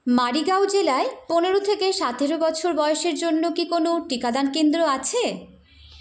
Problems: constant background noise